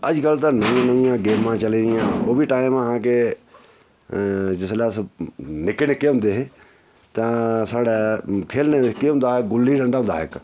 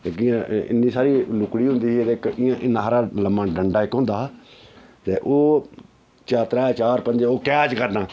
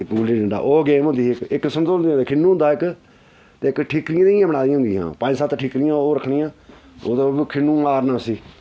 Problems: none marked